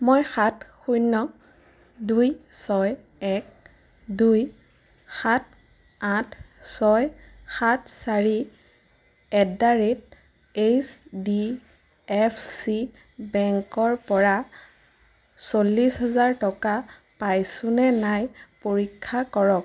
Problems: constant background noise